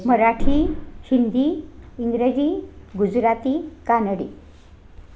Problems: background conversations at intervals